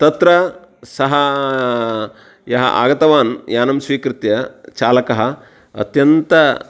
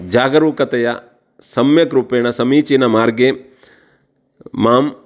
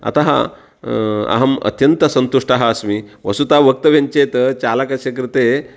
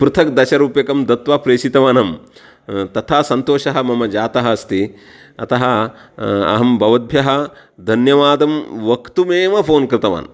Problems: background sounds at intervals